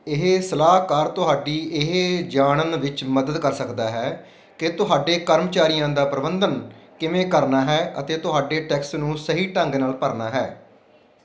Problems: none marked